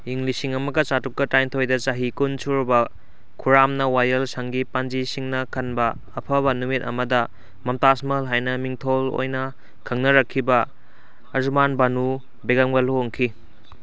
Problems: none marked